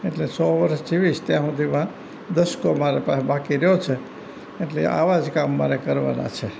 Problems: none marked